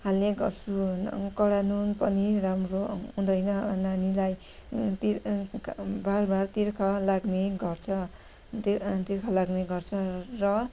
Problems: background sounds at intervals